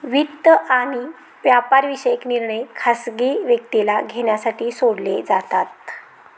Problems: none marked